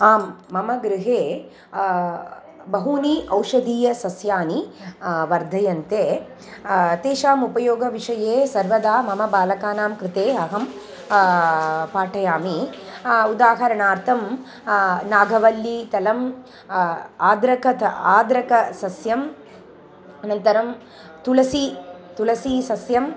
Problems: constant background noise